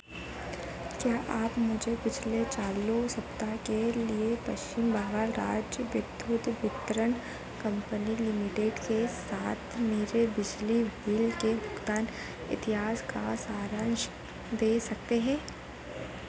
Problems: constant background noise